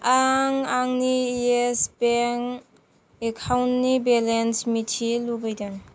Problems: none marked